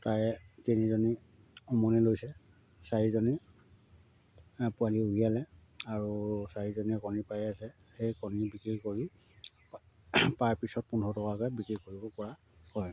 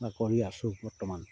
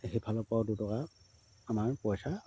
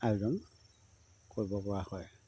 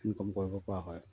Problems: low volume